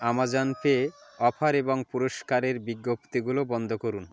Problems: background sounds at intervals